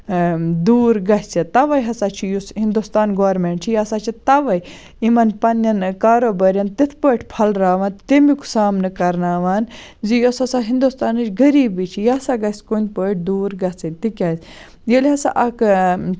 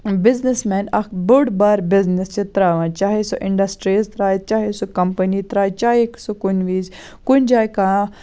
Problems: none marked